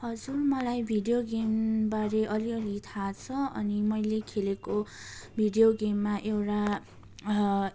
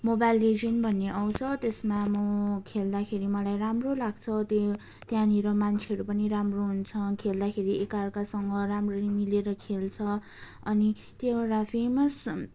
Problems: none marked